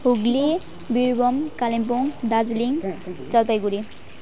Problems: continuous background conversations